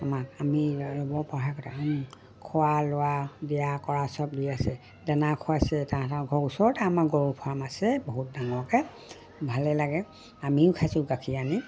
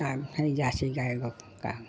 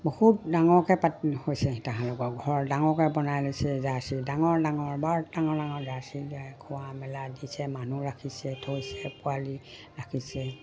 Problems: none marked